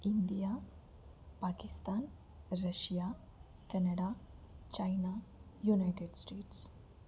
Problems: constant background noise, low volume